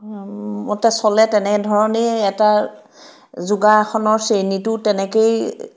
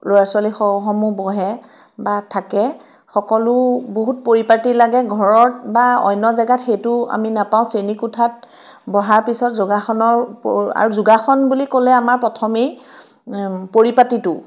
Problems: none marked